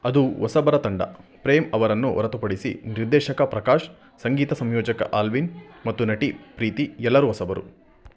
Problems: background sounds at intervals